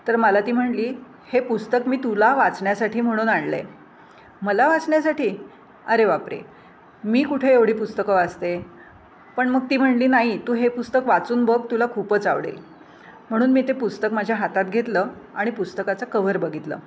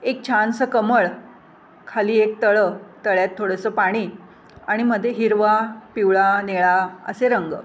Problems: constant background noise, background conversations at intervals